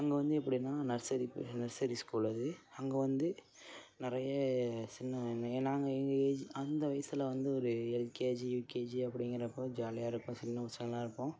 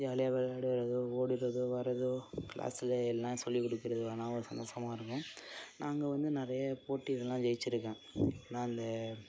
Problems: background sounds at intervals, low volume